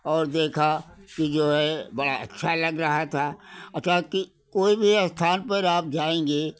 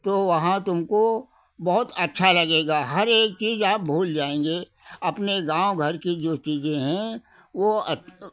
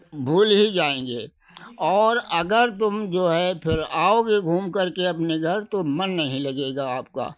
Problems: none marked